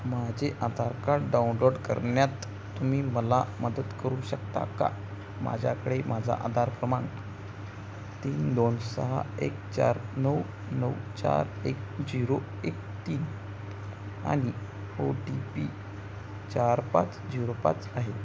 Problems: none marked